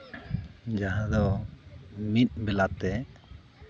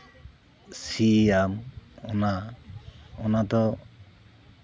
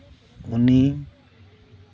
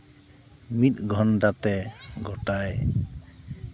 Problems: constant background noise, background conversations at intervals